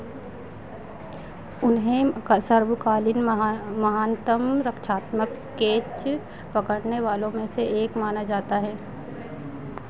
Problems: none marked